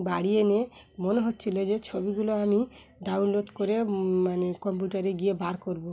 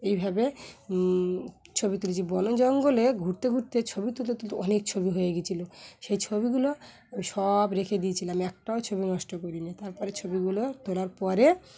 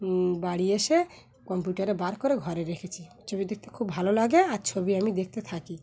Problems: background sounds at intervals, continuous background conversations